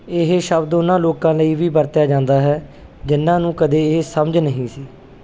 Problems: none marked